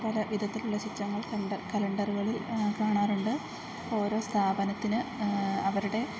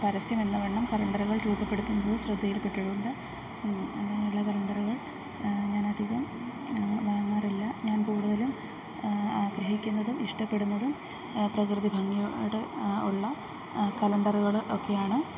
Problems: background sounds at intervals, low volume